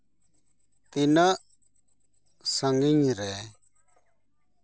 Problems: none marked